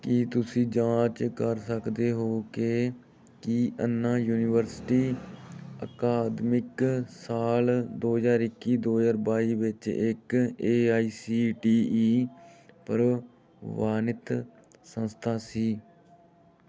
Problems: background sounds at intervals